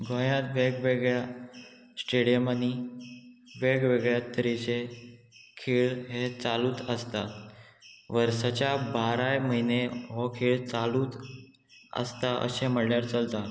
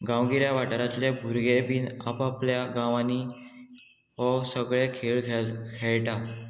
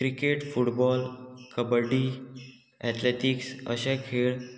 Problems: constant background noise, background conversations at intervals